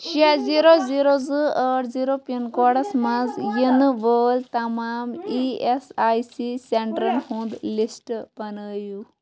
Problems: background sounds at intervals, background conversations at intervals